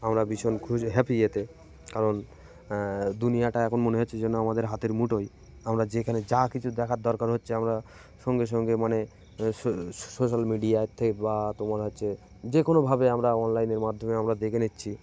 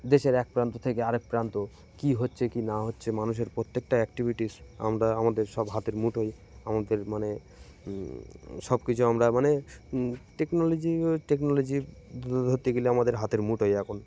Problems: constant background noise